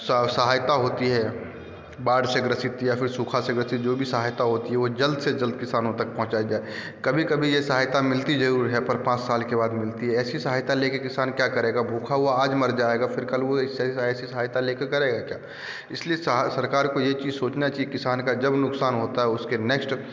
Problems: background sounds at intervals